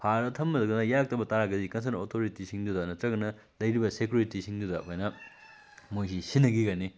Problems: background sounds at intervals